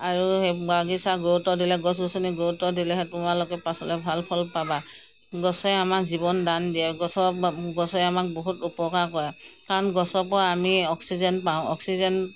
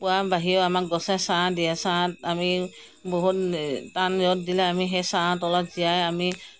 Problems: none marked